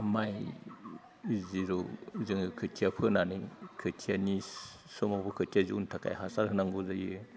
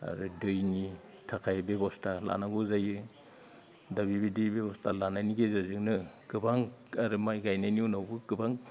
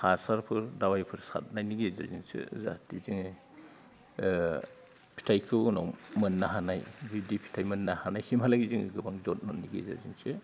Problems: low volume